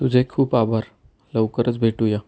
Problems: none marked